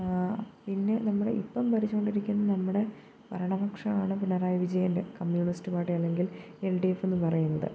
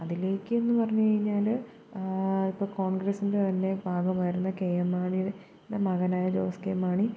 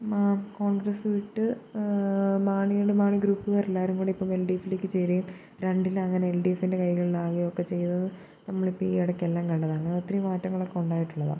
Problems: constant background noise, low volume